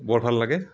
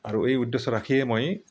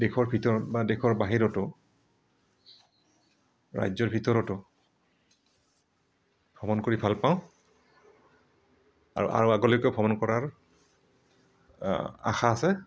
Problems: background sounds at intervals